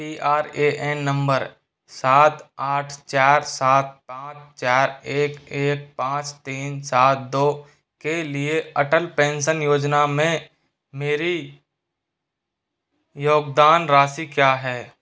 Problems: constant background noise